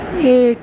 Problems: constant background noise